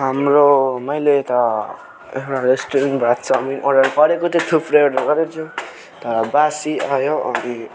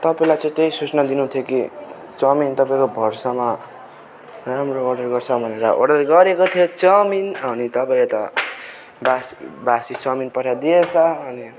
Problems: none marked